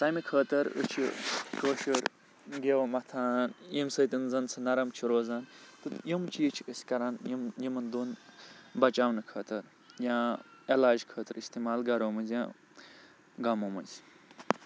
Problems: none marked